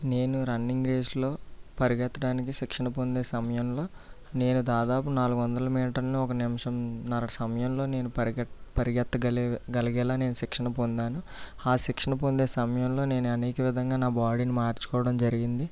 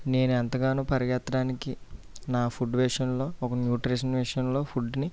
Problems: low volume